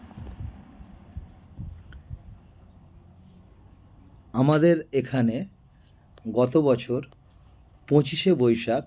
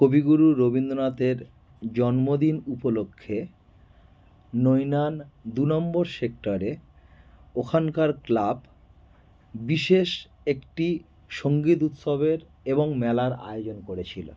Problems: background sounds at intervals